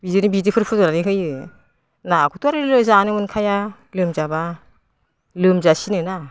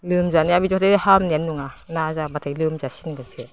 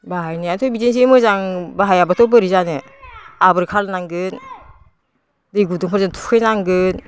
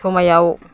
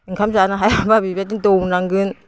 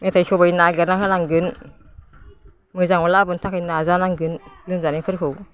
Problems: constant background noise